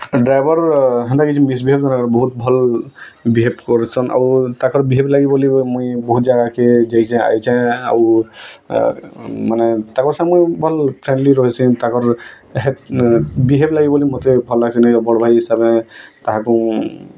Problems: none marked